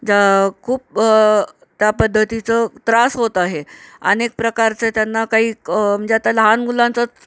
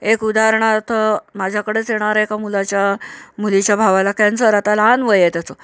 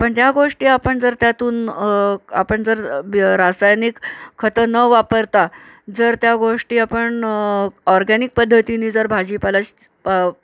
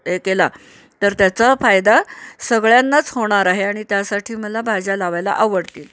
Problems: none marked